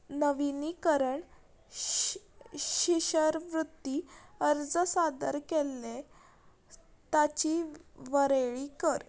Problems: none marked